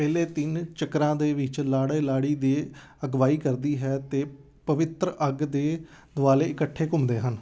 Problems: none marked